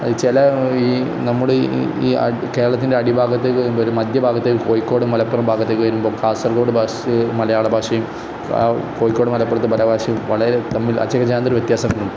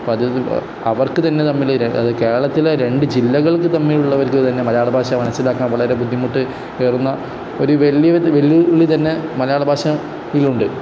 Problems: constant background noise